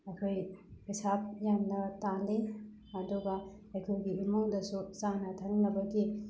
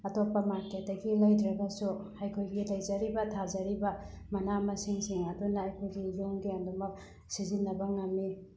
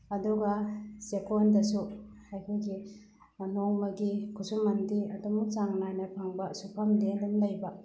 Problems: background sounds at intervals